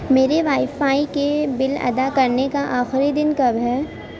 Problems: none marked